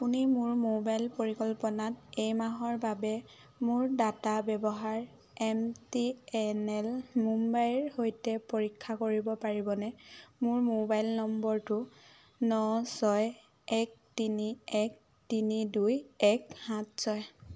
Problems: constant background noise